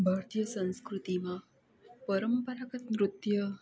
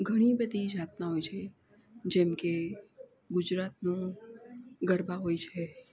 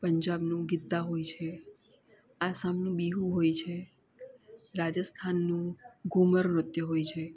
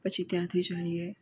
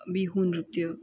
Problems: constant background noise